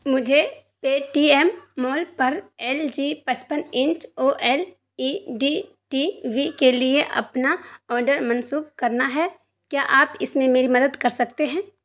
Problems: none marked